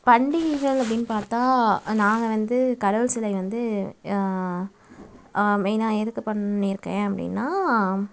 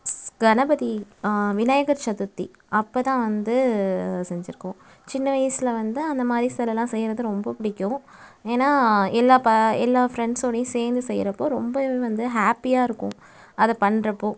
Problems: background sounds at intervals